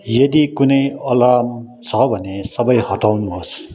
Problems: background conversations at intervals